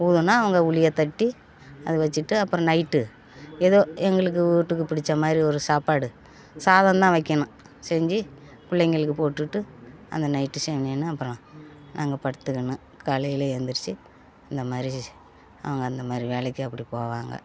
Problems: background conversations at intervals